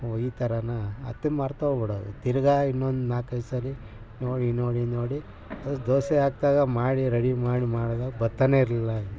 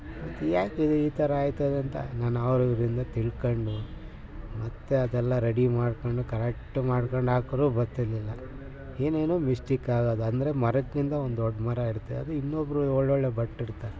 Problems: background sounds at intervals